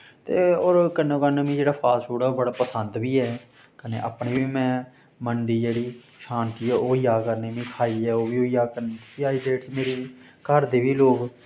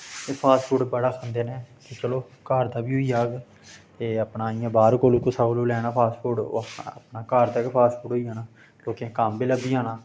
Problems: constant background noise